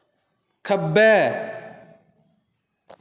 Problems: echo